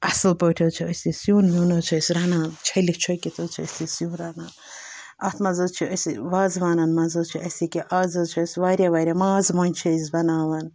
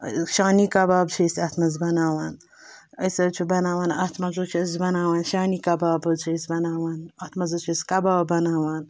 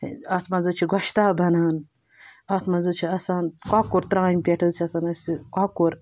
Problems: background sounds at intervals